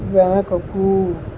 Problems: constant background noise